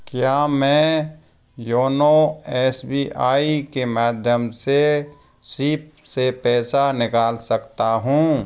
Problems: none marked